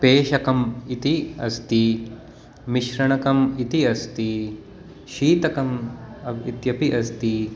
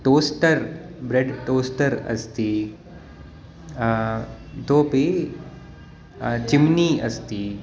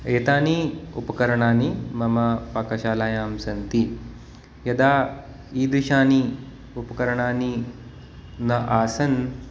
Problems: constant background noise